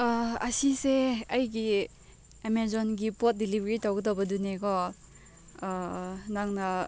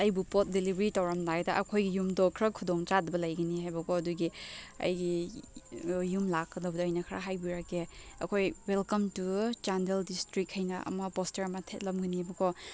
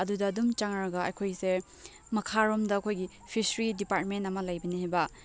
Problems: background sounds at intervals